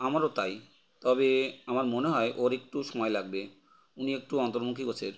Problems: none marked